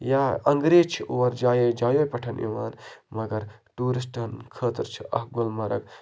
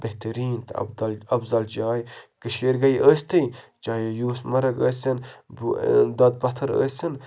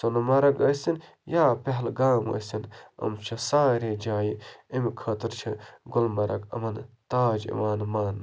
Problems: none marked